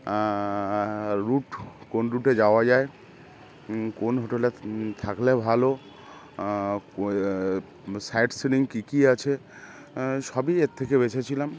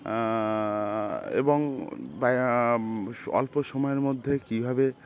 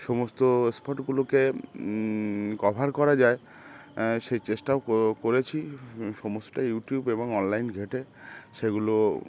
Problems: constant background noise